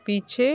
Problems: background sounds at intervals